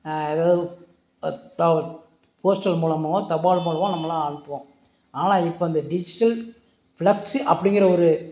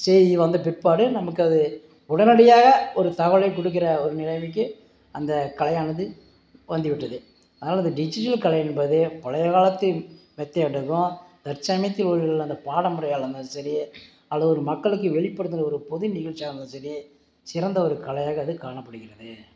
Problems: background sounds at intervals